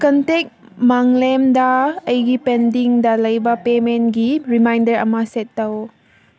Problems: none marked